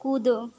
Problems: background sounds at intervals